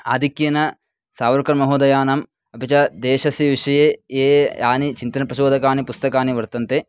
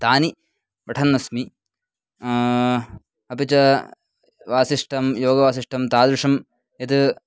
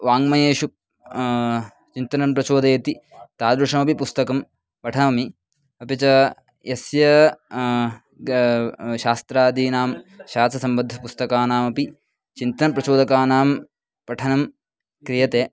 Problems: background sounds at intervals, background conversations at intervals